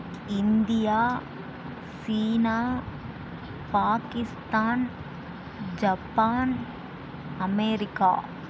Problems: none marked